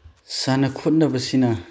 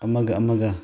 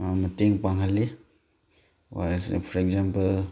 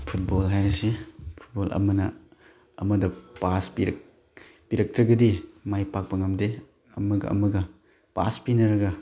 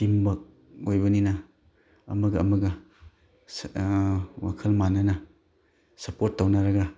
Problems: background sounds at intervals